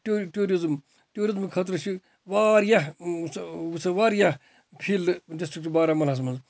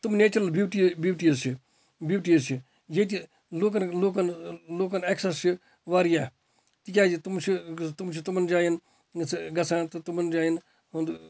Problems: none marked